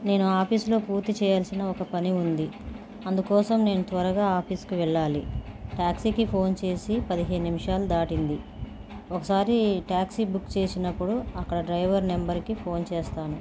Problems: constant background noise